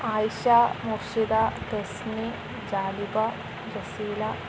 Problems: none marked